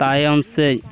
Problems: constant background noise